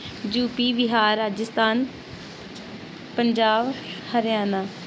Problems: none marked